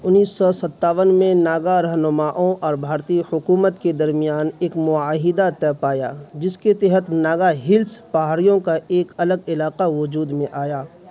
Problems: constant background noise